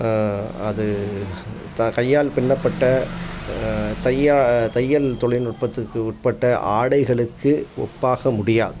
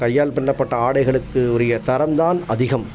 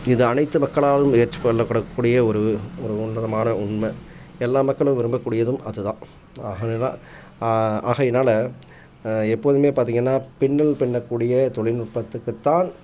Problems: background sounds at intervals